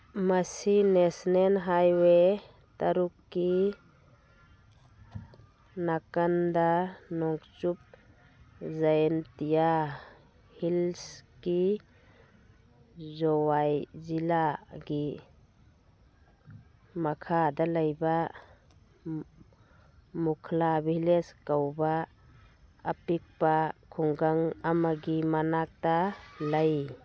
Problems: background sounds at intervals